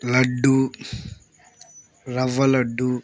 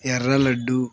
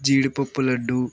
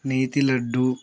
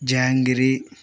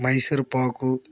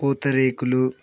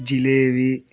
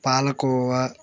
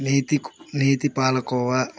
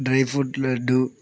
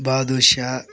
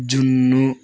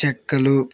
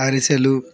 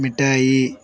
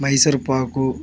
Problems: none marked